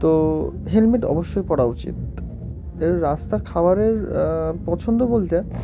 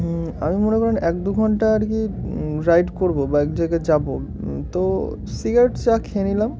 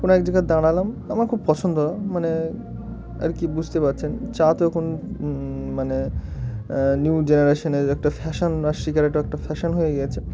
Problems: constant background noise, continuous background conversations